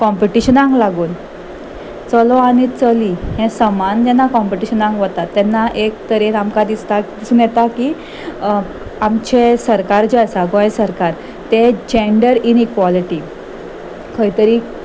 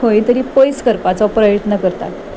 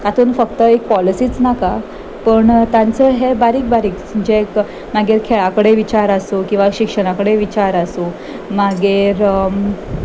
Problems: background sounds at intervals